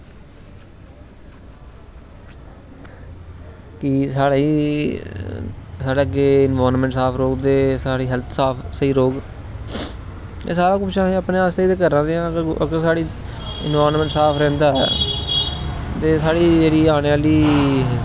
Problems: constant background noise